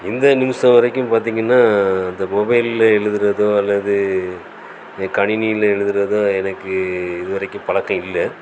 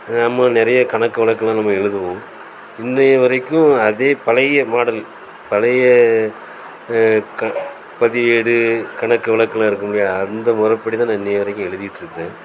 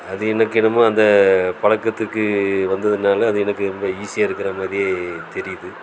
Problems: constant background noise